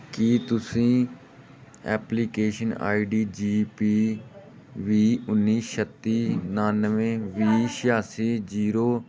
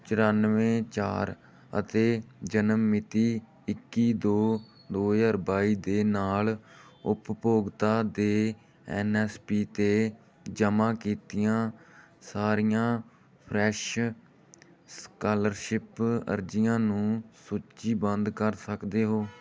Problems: background sounds at intervals